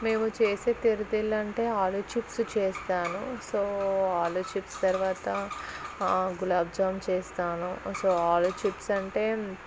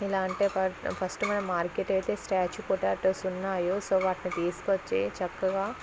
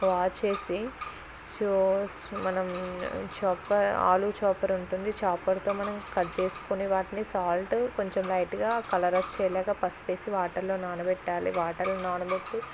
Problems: constant background noise, background conversations at intervals, low volume